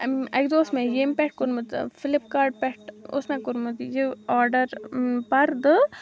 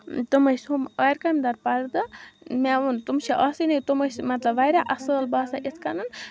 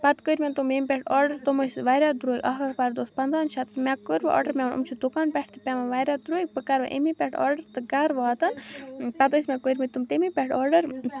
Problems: background sounds at intervals